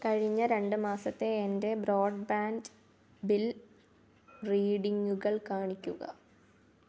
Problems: none marked